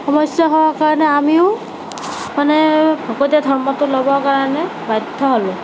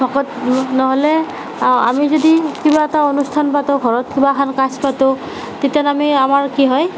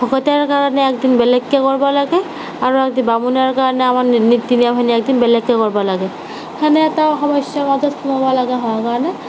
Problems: constant background noise